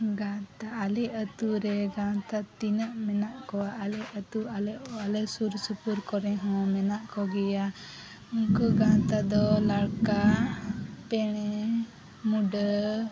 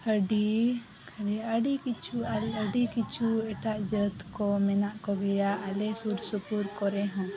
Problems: none marked